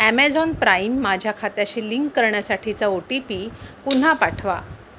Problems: constant background noise